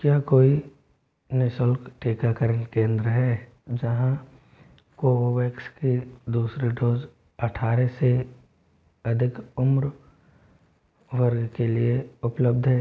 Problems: constant background noise